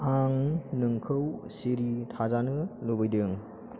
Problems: constant background noise